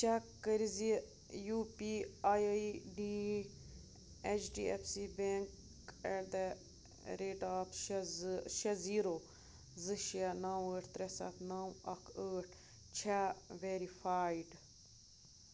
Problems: constant background noise